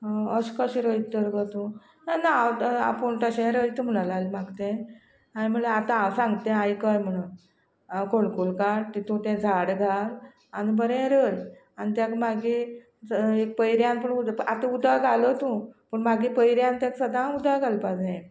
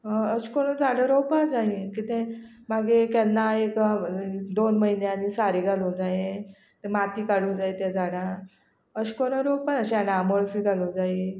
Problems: constant background noise